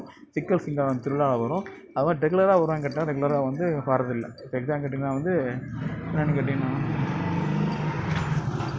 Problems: constant background noise